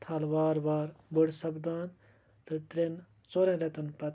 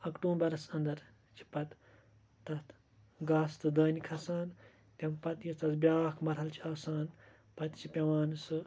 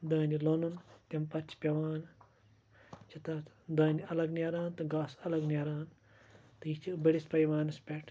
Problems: constant background noise